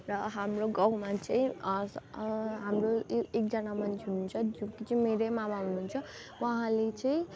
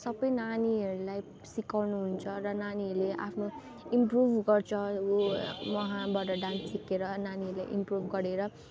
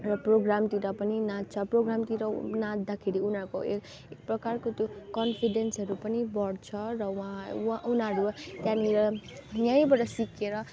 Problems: constant background noise, continuous background conversations